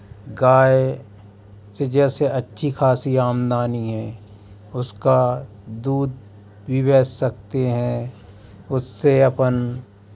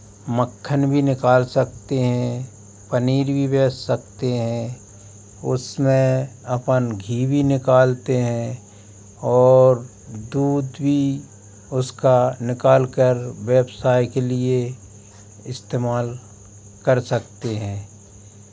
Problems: constant background noise